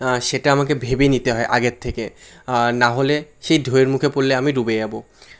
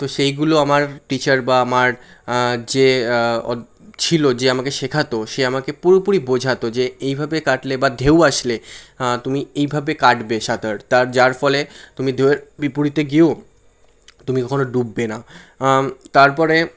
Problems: constant background noise